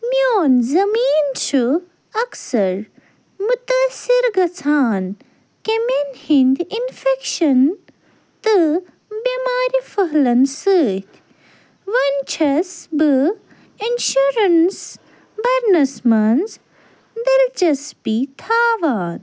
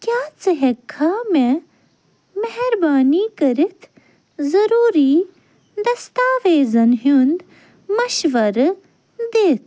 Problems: none marked